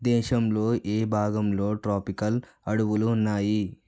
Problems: none marked